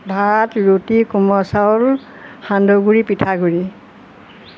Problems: constant background noise